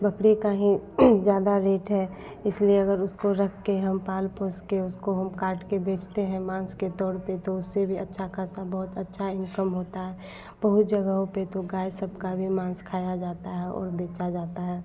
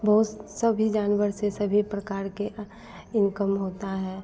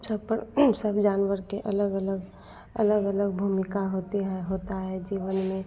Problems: constant background noise